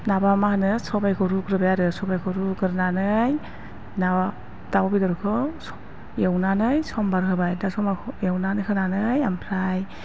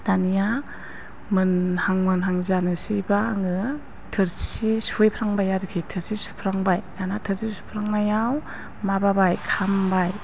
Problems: constant background noise